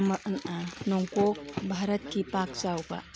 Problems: background sounds at intervals, background conversations at intervals